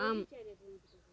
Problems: background conversations at intervals